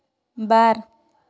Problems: none marked